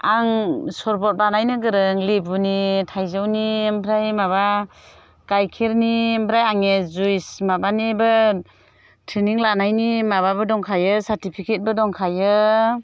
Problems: none marked